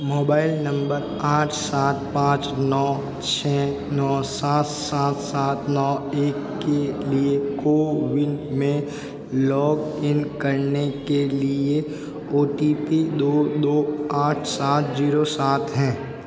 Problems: constant background noise